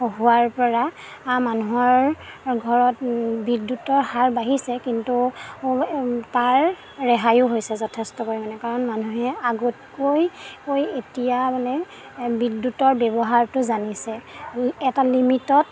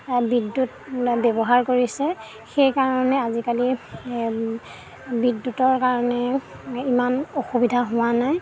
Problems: background sounds at intervals